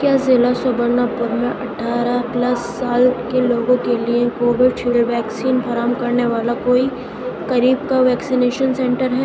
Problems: constant background noise